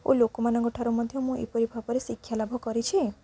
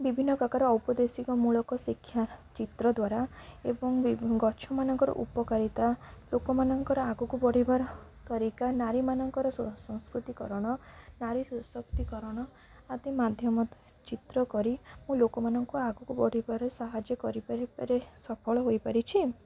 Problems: low volume